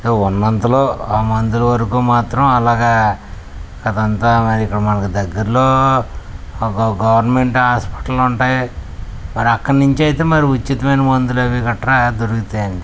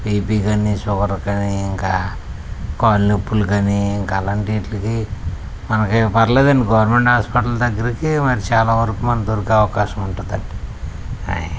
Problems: none marked